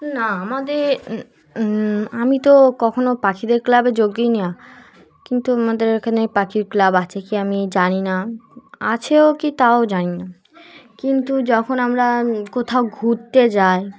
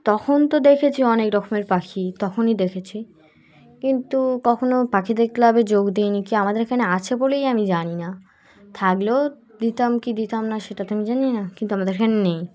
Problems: none marked